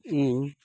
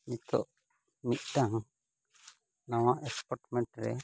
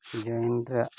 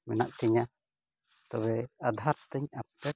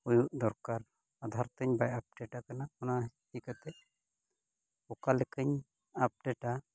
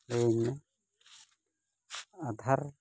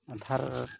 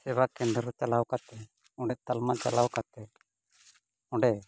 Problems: background sounds at intervals